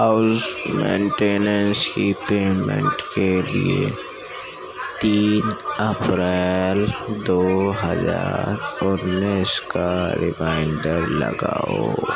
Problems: constant background noise, low volume